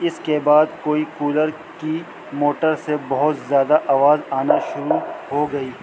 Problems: constant background noise